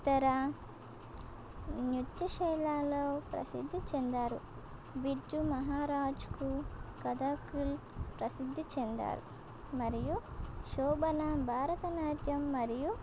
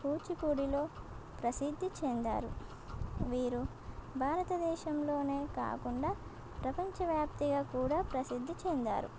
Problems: constant background noise